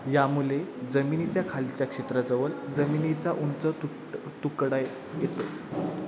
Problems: none marked